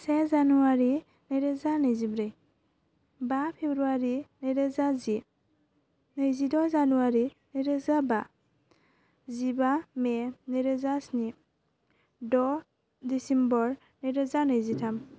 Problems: constant background noise